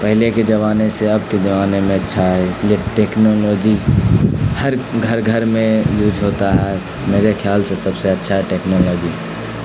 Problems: constant background noise